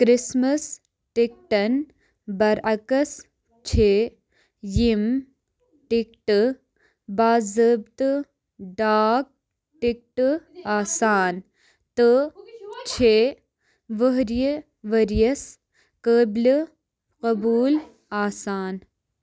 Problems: background sounds at intervals